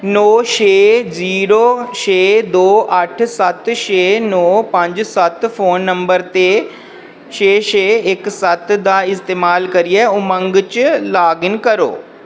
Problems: none marked